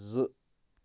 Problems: constant background noise